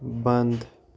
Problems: none marked